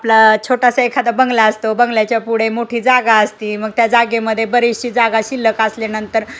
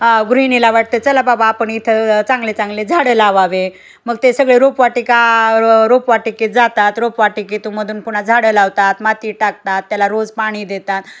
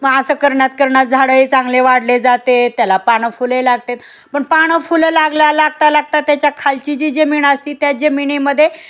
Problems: none marked